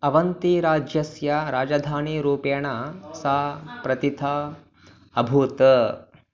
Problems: background sounds at intervals